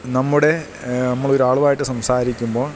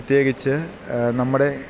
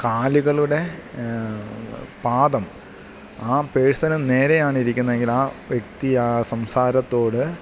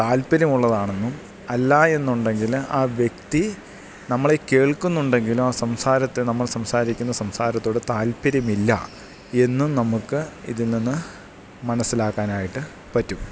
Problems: none marked